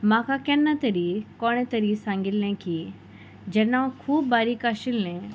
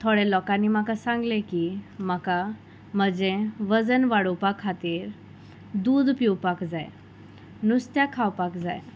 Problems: background sounds at intervals